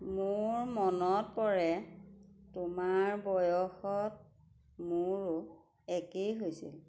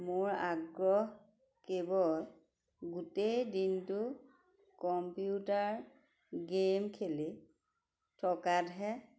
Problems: background conversations at intervals